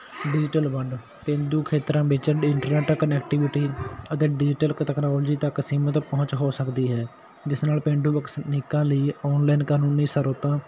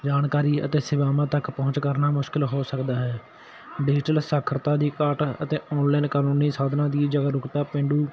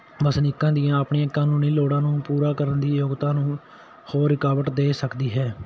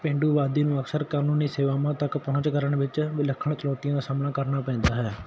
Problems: none marked